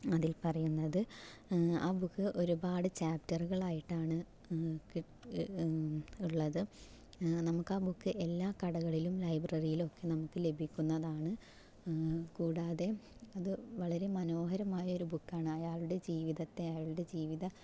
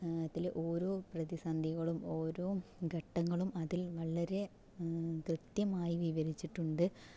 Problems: low volume